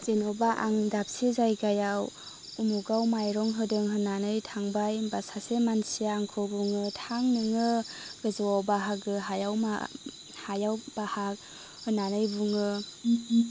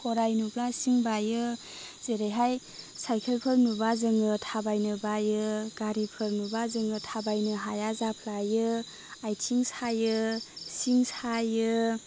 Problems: constant background noise